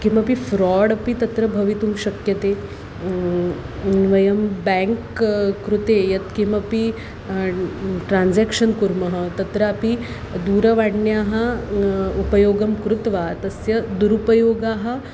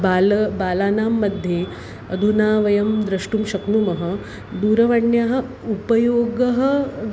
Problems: constant background noise